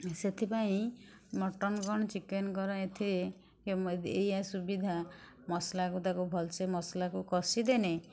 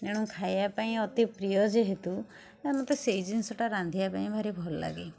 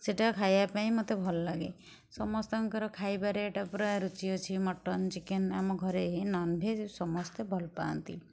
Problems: none marked